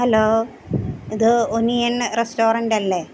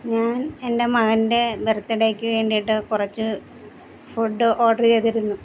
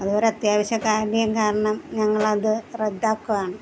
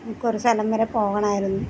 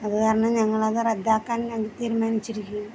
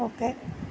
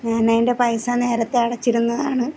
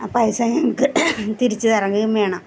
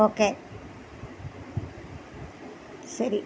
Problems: constant background noise